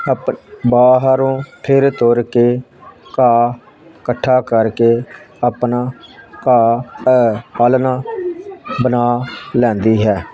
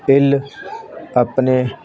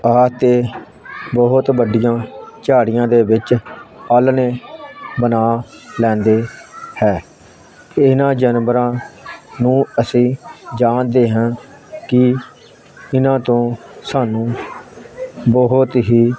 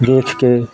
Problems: constant background noise